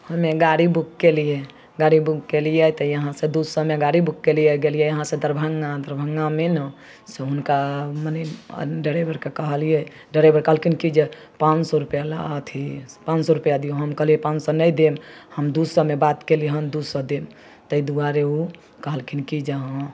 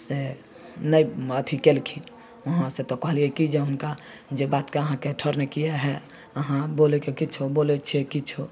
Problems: none marked